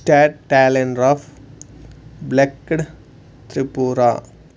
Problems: none marked